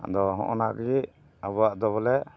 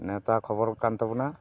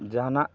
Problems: background sounds at intervals